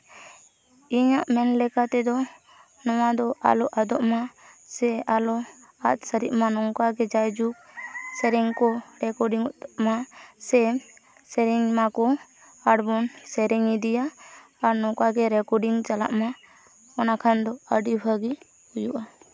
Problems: constant background noise, continuous background conversations